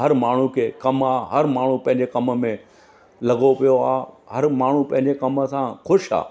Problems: constant background noise